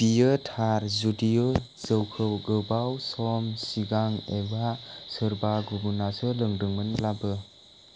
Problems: constant background noise